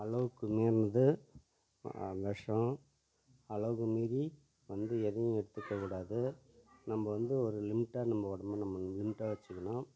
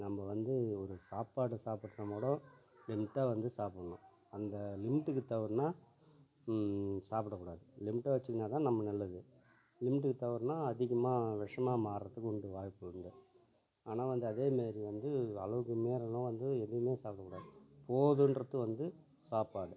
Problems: low volume